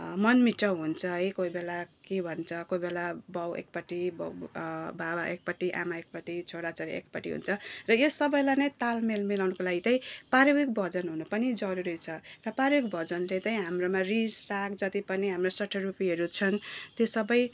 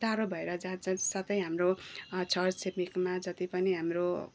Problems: none marked